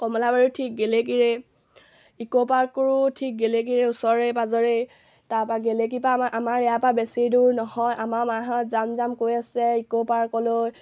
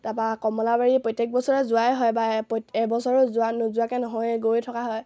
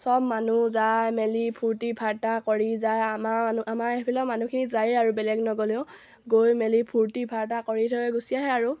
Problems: low volume